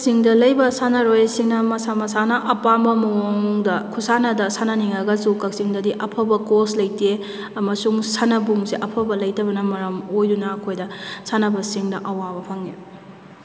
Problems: none marked